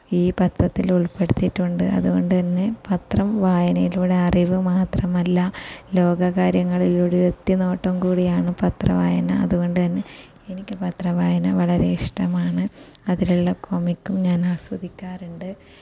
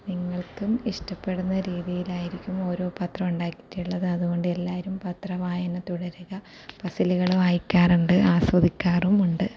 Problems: constant background noise, low volume